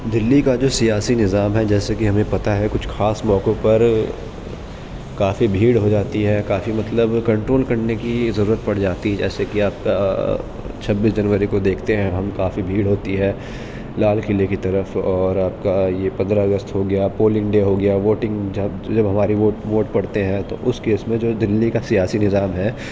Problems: constant background noise, background conversations at intervals